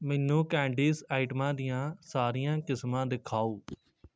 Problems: constant background noise